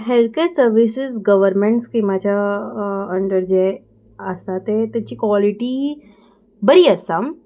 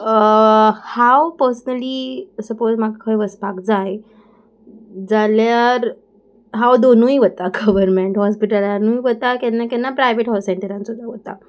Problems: background sounds at intervals